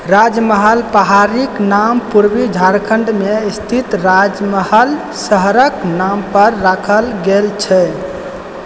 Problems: constant background noise